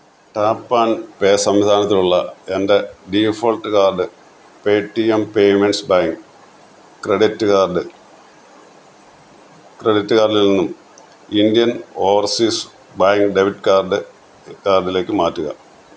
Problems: constant background noise